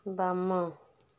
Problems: none marked